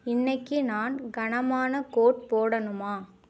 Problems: none marked